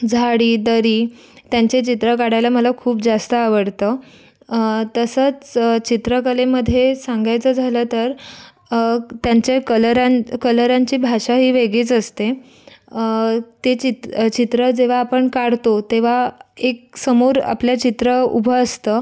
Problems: background sounds at intervals, background conversations at intervals